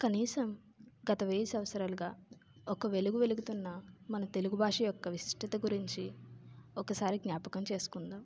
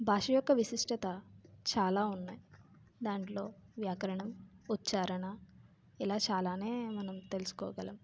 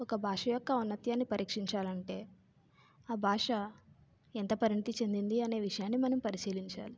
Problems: low volume